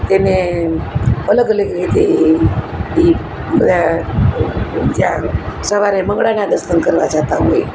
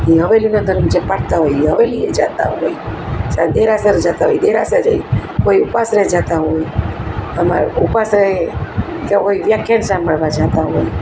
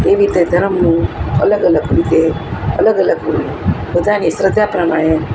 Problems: constant background noise